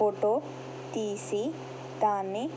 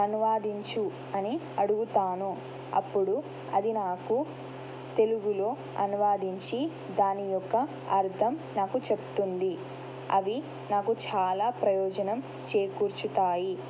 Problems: constant background noise